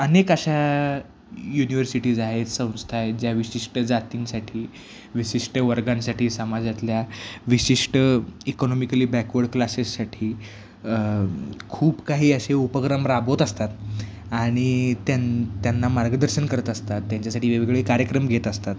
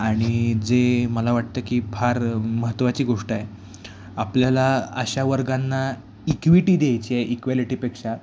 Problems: none marked